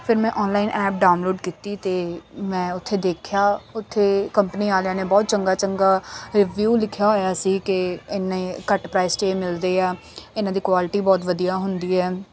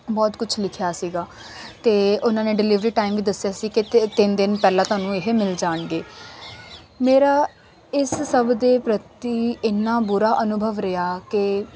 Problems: none marked